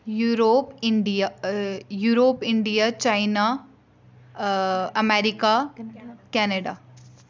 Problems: none marked